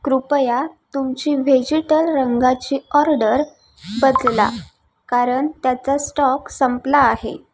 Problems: background sounds at intervals